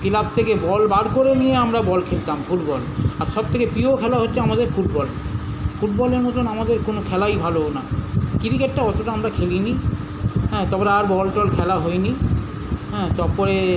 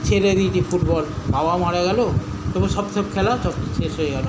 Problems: none marked